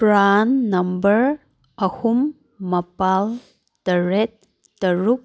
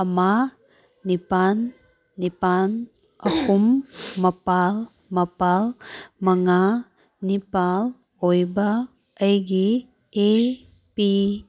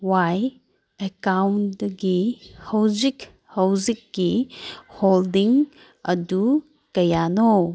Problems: none marked